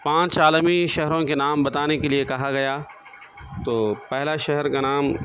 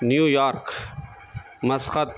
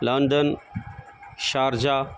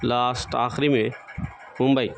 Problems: constant background noise